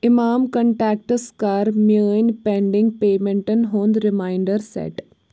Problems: background sounds at intervals